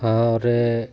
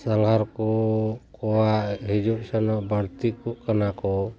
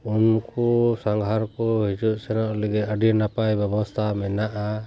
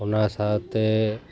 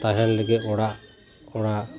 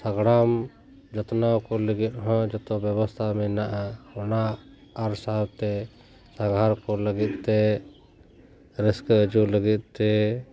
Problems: background sounds at intervals